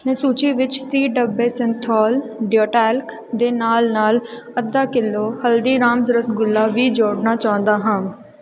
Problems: background sounds at intervals